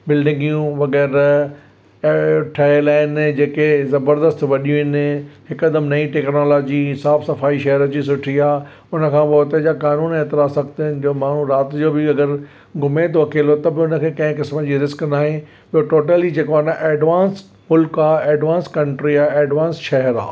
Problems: none marked